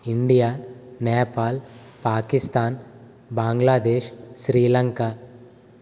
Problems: constant background noise